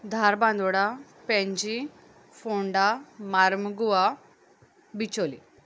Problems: none marked